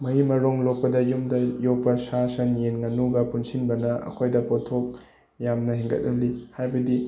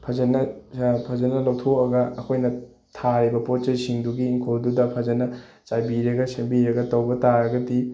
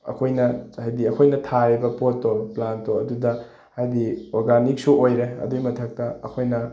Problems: background sounds at intervals